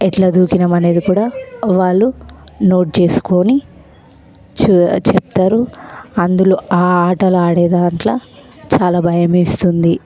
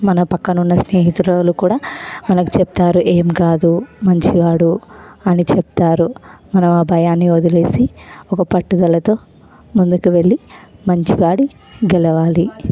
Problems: constant background noise, background conversations at intervals